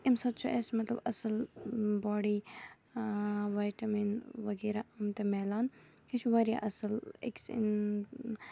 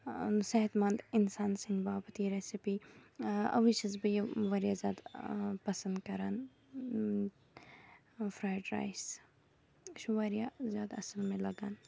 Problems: background sounds at intervals